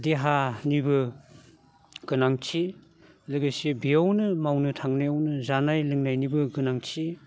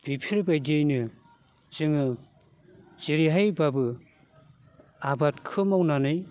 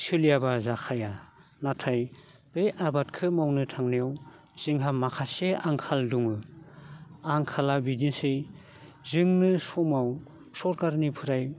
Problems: none marked